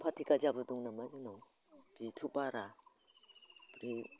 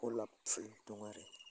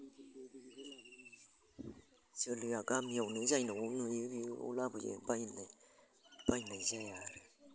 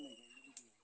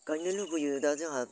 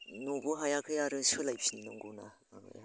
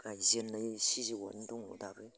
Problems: constant background noise